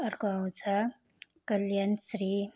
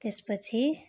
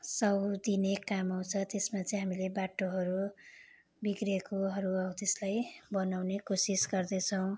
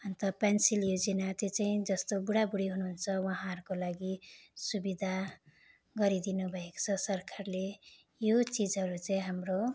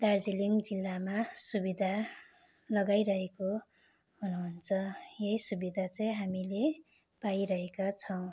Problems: constant background noise